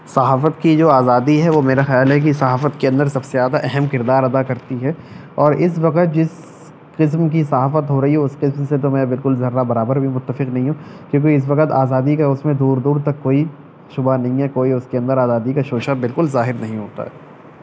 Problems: none marked